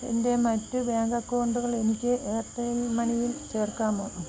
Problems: constant background noise, low volume